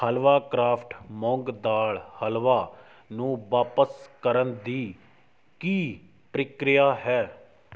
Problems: background sounds at intervals